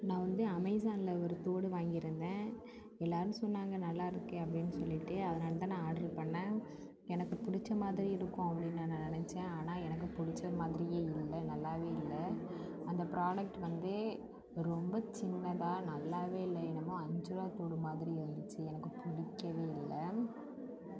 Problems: background sounds at intervals